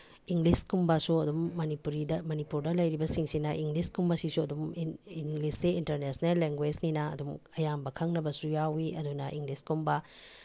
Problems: none marked